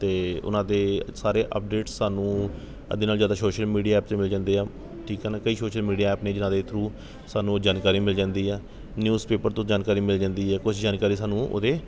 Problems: background sounds at intervals